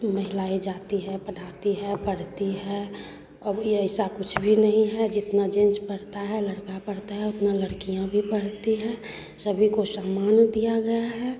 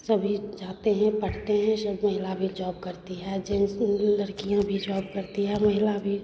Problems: constant background noise, background conversations at intervals